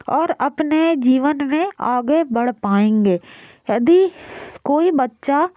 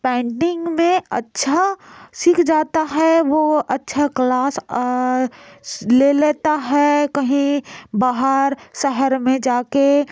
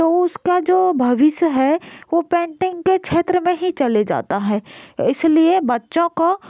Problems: none marked